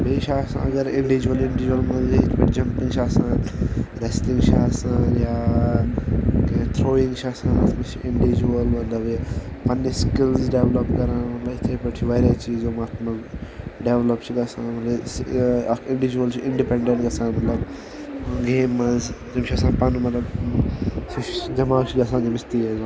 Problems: constant background noise, background conversations at intervals